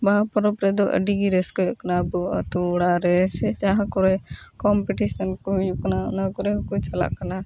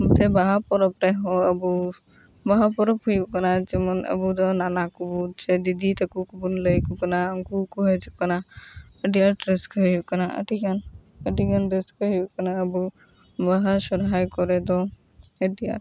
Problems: background sounds at intervals